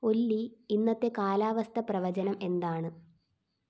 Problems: background sounds at intervals